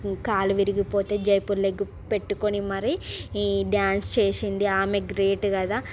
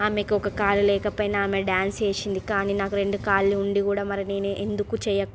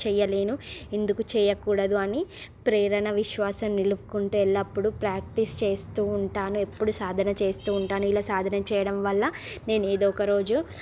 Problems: none marked